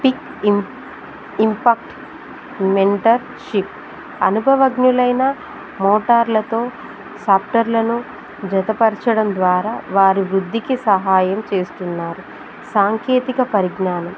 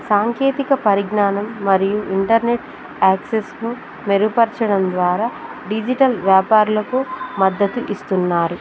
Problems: constant background noise